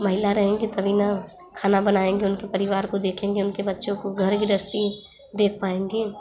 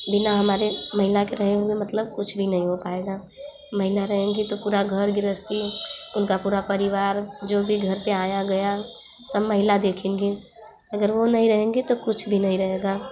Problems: none marked